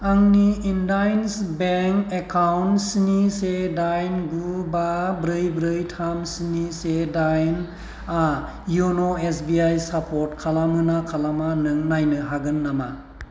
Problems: constant background noise